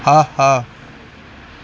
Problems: none marked